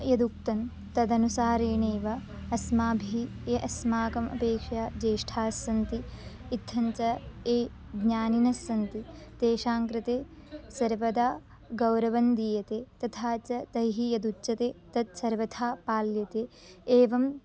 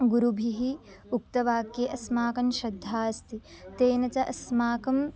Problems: none marked